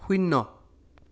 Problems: none marked